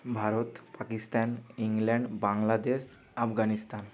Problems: constant background noise